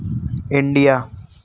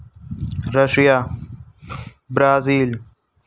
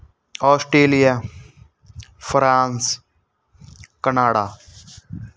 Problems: background sounds at intervals